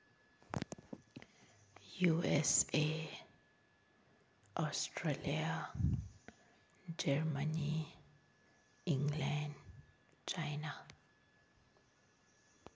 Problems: none marked